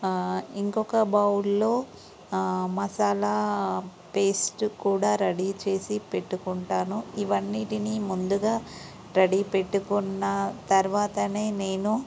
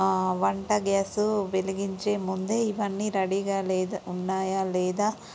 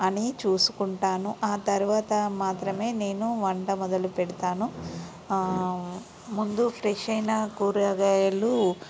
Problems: constant background noise